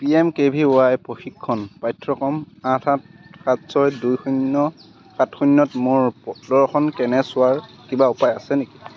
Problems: constant background noise, background conversations at intervals